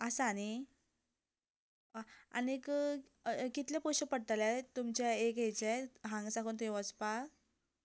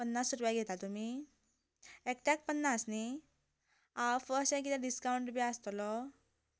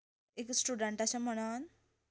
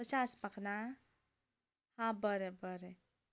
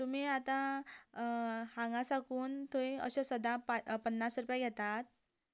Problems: none marked